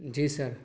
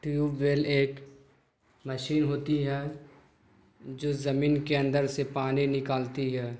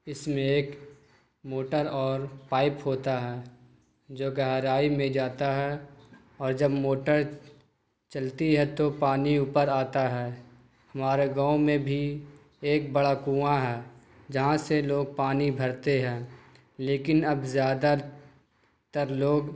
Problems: none marked